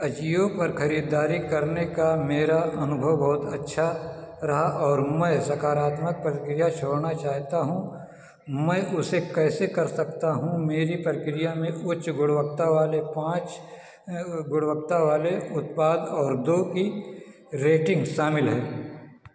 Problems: constant background noise